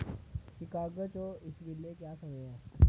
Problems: constant background noise, low volume